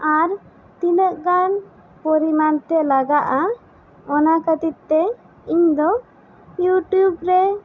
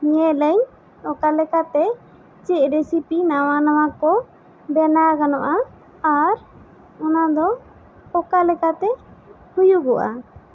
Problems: constant background noise